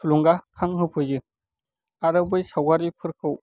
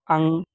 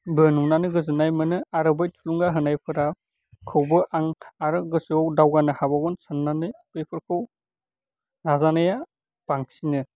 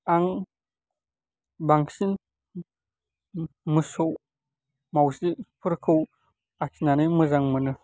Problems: none marked